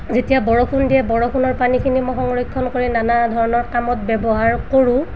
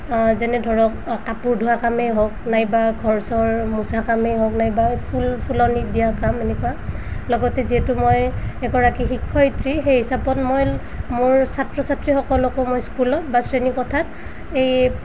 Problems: background sounds at intervals